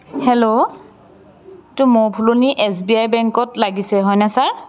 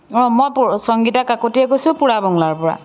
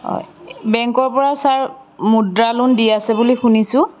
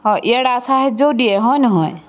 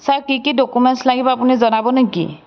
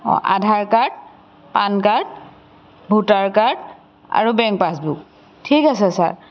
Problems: background sounds at intervals